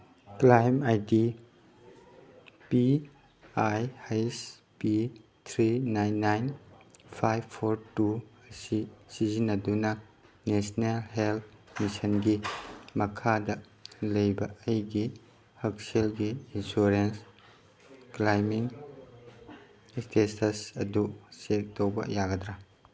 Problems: background sounds at intervals